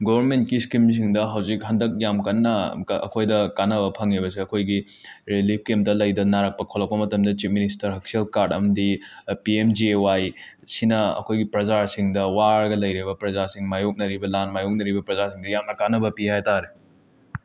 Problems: none marked